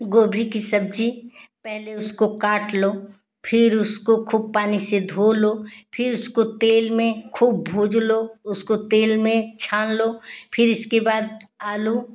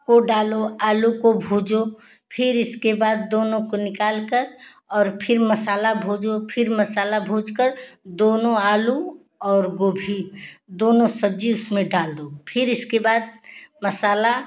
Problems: none marked